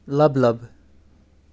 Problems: none marked